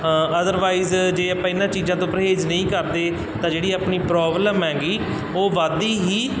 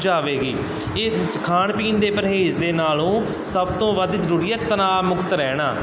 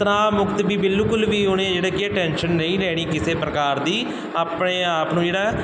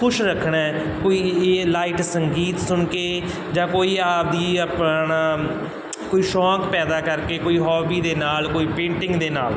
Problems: none marked